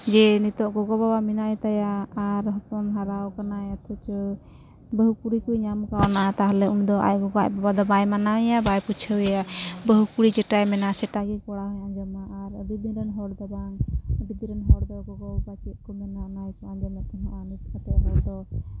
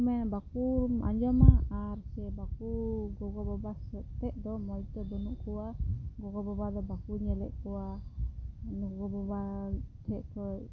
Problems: constant background noise, low volume